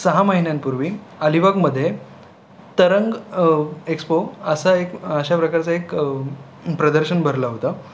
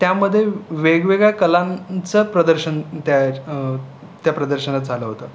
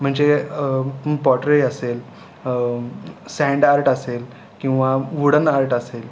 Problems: constant background noise, background conversations at intervals